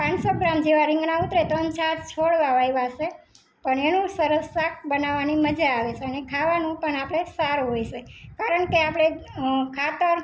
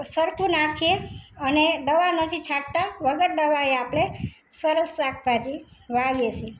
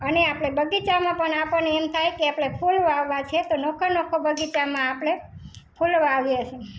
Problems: background sounds at intervals